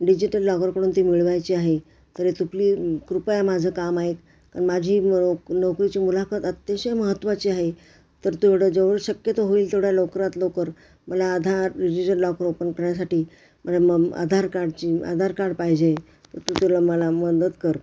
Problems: constant background noise